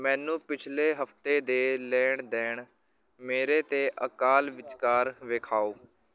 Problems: background sounds at intervals, background conversations at intervals